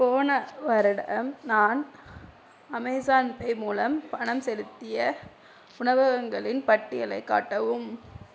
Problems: none marked